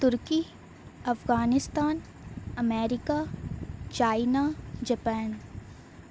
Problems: none marked